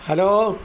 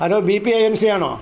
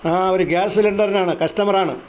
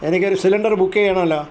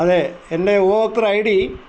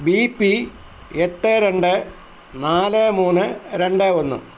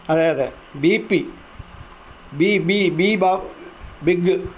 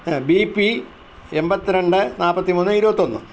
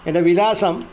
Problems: constant background noise